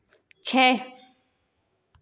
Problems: echo